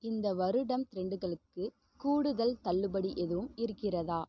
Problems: background sounds at intervals, low volume